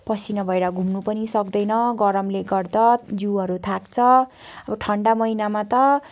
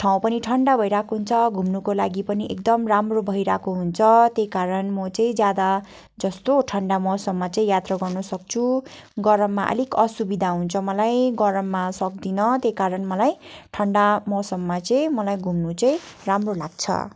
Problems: none marked